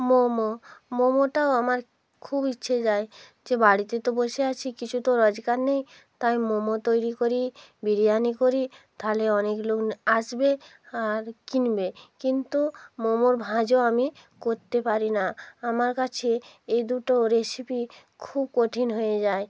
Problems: constant background noise